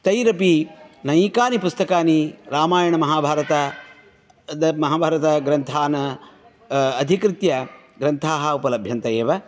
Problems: none marked